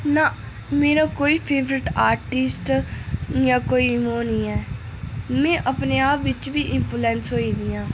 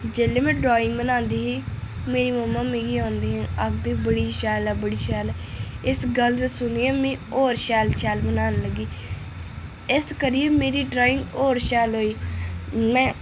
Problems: echo